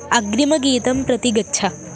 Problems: none marked